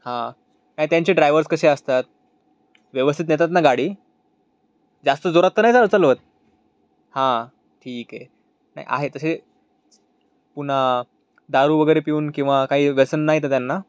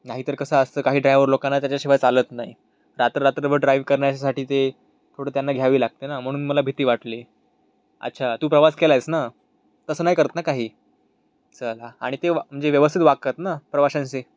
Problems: none marked